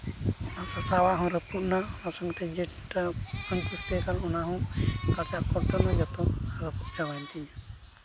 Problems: constant background noise